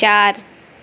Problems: none marked